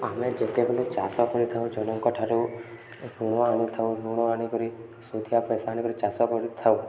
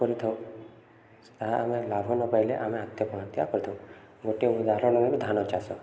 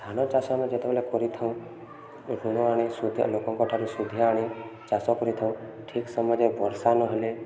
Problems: none marked